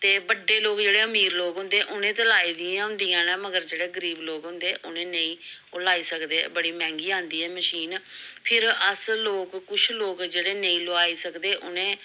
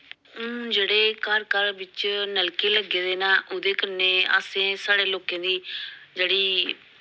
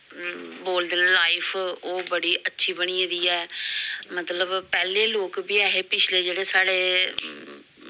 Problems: background sounds at intervals